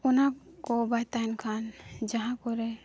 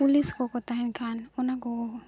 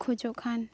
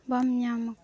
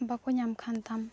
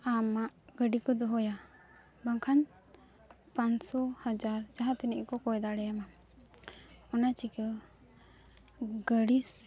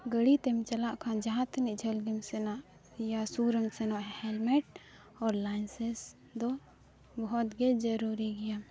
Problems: none marked